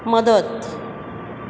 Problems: background sounds at intervals